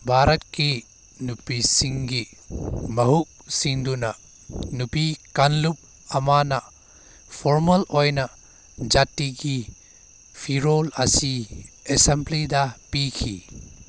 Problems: background sounds at intervals